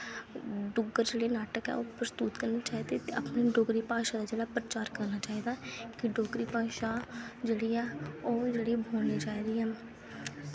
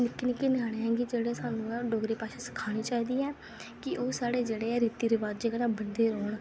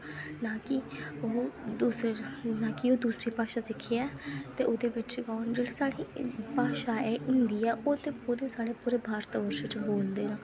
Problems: constant background noise